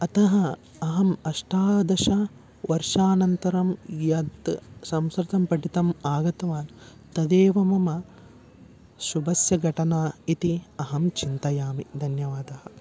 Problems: constant background noise